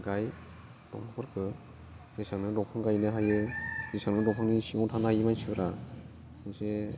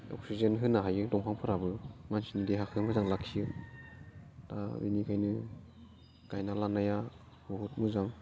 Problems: none marked